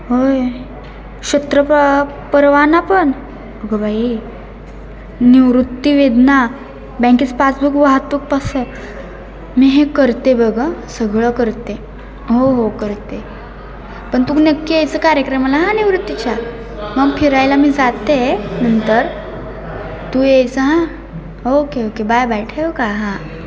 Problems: none marked